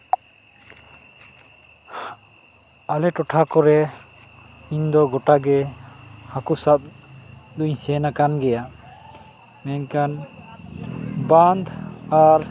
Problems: constant background noise